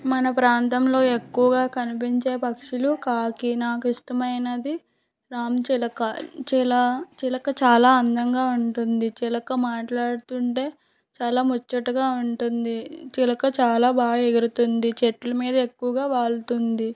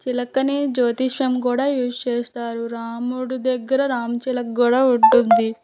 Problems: background sounds at intervals